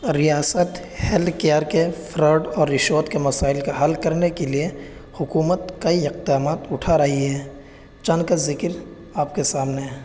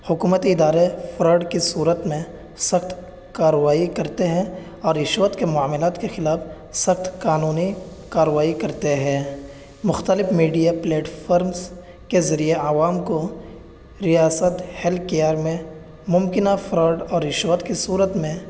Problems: background sounds at intervals